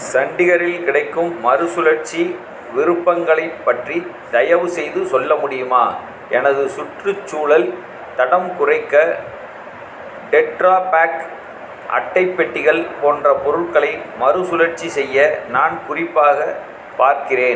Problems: constant background noise